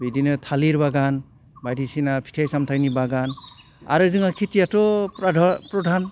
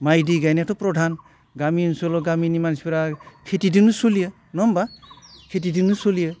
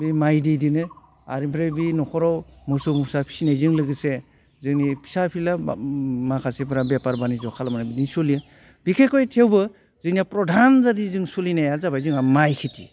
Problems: none marked